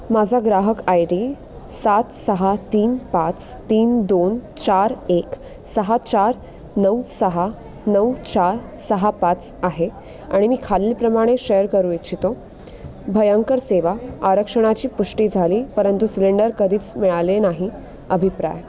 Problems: constant background noise, continuous background conversations